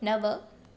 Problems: constant background noise, echo